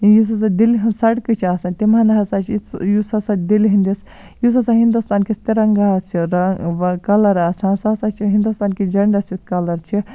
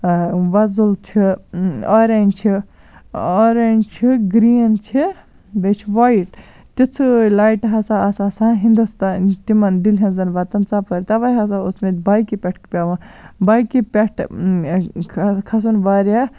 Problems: none marked